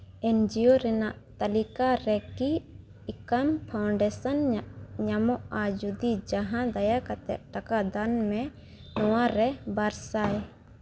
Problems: constant background noise